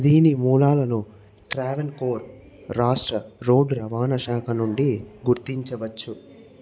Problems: none marked